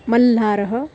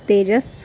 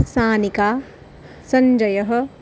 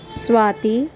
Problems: background sounds at intervals